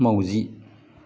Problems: low volume